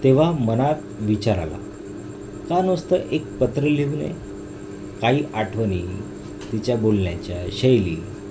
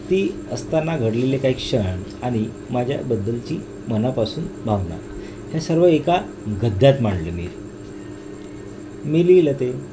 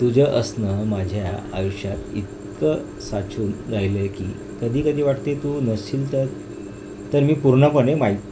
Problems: constant background noise